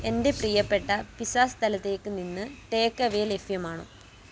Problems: background sounds at intervals